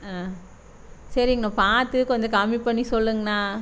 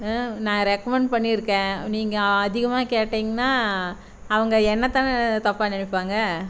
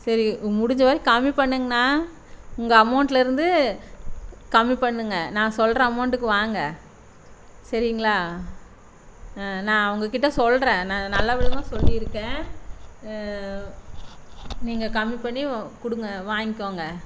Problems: constant background noise